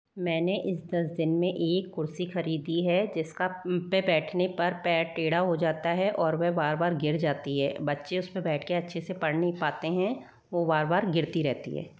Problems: none marked